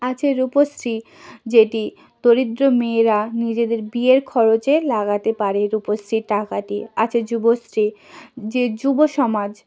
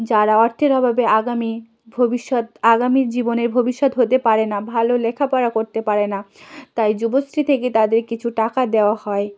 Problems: none marked